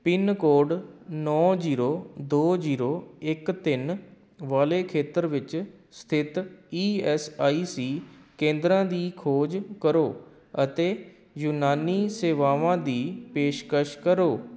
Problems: background sounds at intervals